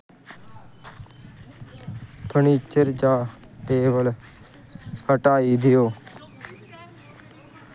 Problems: none marked